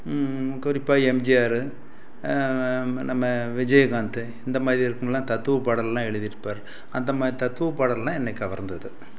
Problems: constant background noise